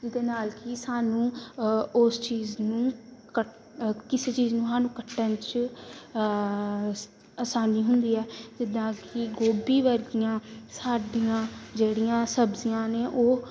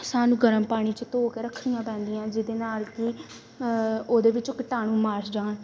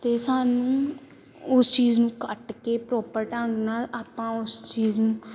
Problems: none marked